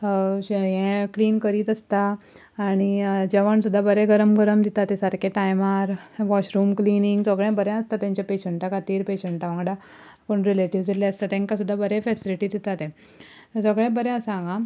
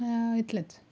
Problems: none marked